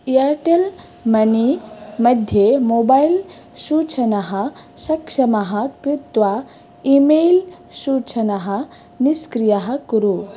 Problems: none marked